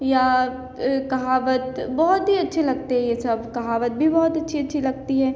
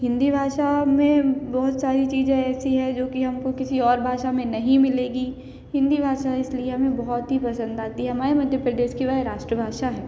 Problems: constant background noise, background conversations at intervals, echo